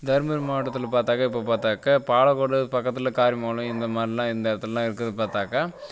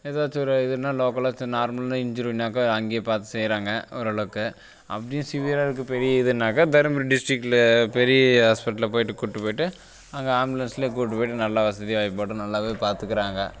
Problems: constant background noise